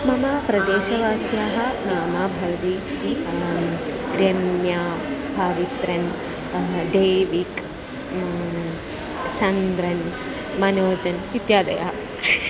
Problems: constant background noise